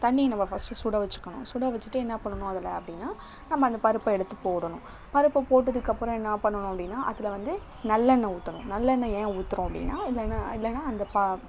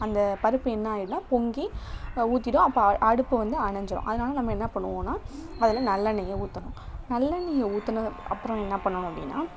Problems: none marked